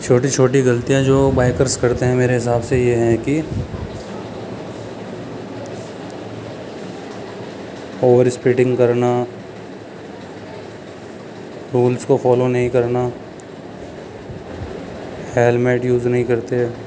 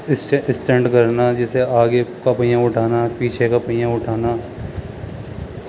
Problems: constant background noise, background conversations at intervals